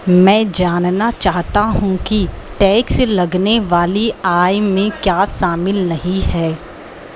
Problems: none marked